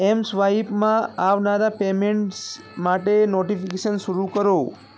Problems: constant background noise